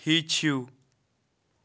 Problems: none marked